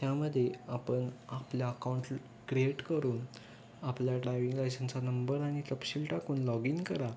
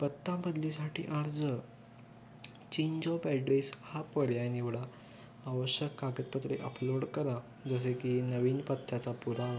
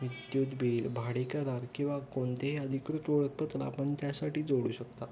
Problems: constant background noise, continuous background conversations